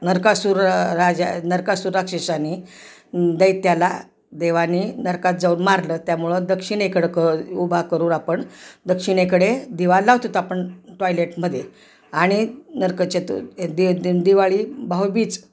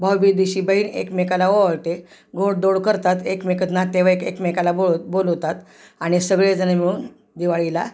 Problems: none marked